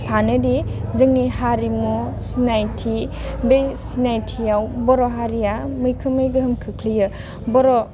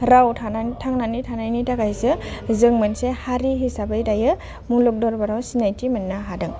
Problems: constant background noise